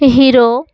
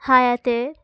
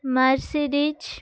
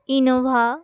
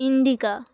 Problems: constant background noise